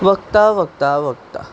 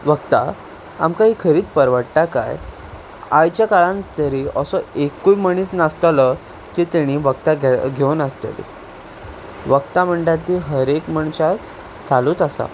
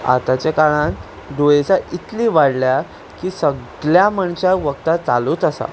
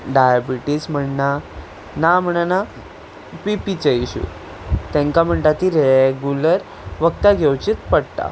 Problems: constant background noise